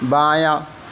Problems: none marked